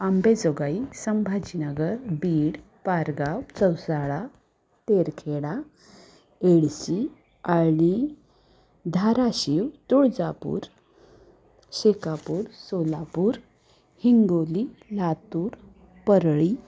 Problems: constant background noise, background conversations at intervals